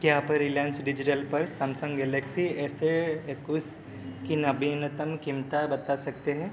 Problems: constant background noise